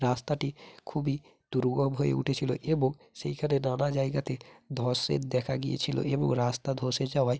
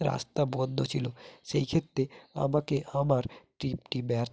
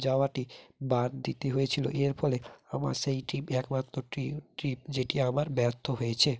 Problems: none marked